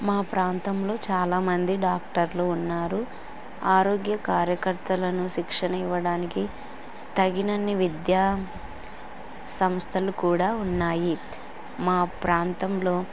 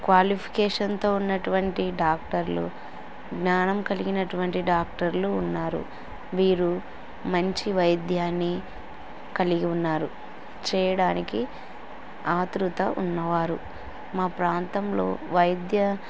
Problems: constant background noise